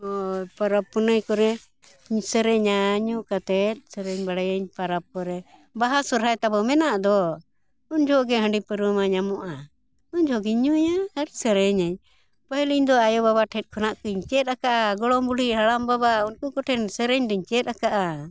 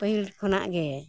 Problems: none marked